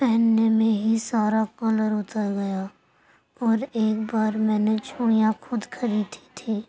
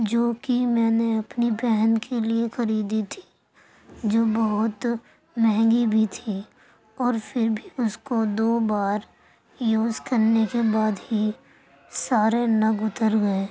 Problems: constant background noise, low volume